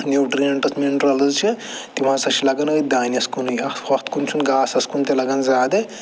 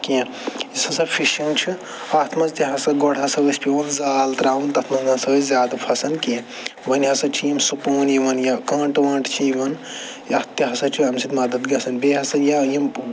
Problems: none marked